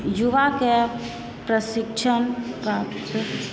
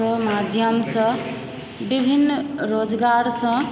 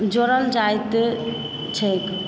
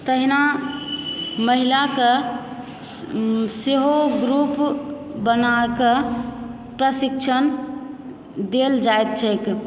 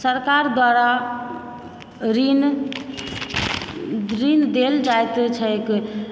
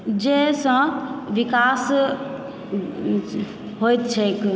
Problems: background sounds at intervals, background conversations at intervals